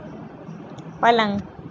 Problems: constant background noise